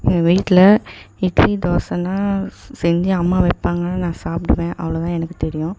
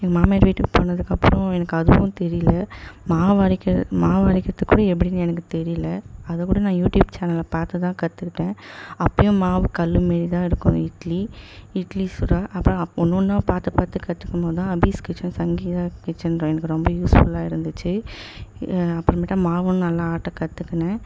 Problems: none marked